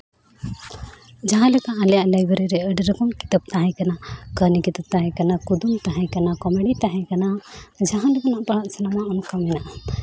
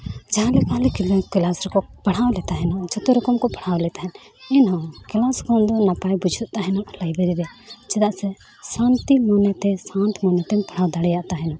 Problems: constant background noise, background conversations at intervals